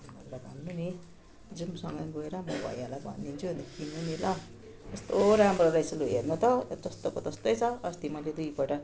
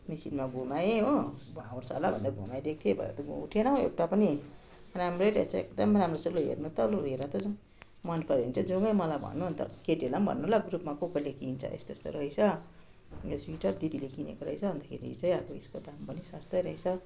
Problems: continuous background conversations